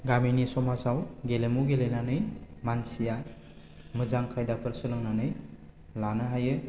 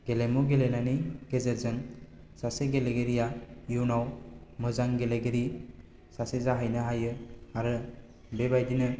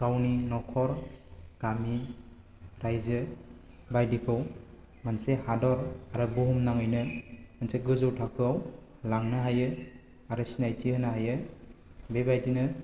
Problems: none marked